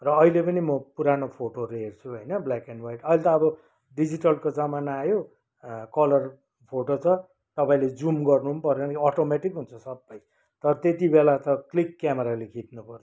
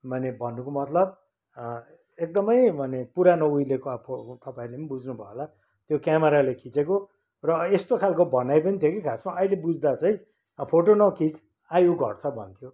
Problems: none marked